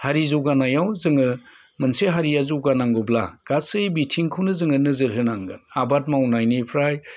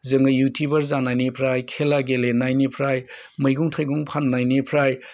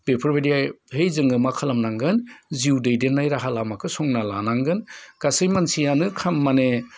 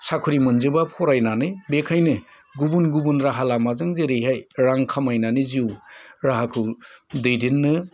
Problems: none marked